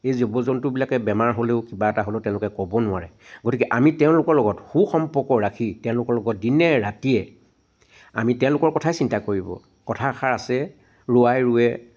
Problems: background sounds at intervals